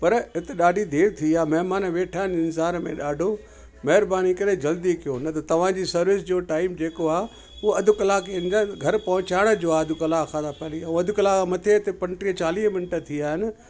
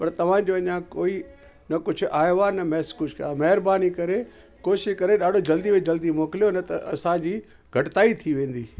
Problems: constant background noise, echo